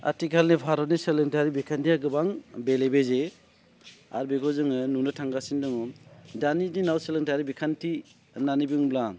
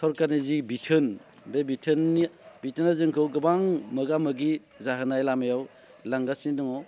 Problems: none marked